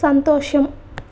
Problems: none marked